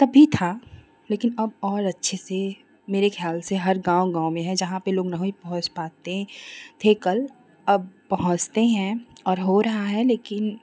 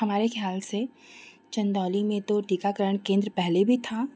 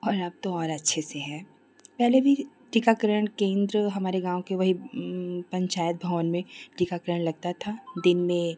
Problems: constant background noise